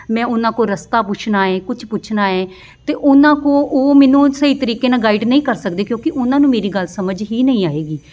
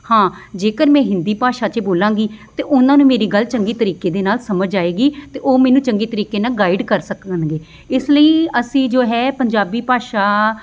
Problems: background sounds at intervals, background conversations at intervals